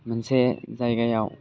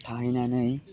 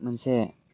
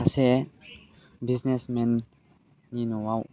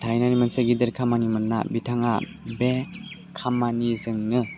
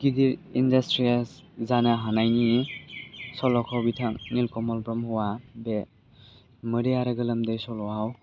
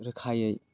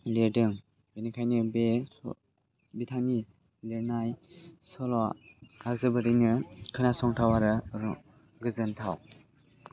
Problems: low volume